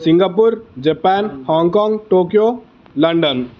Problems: constant background noise